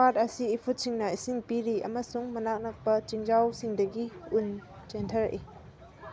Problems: background sounds at intervals